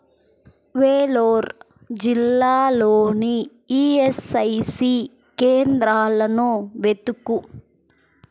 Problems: constant background noise